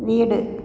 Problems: constant background noise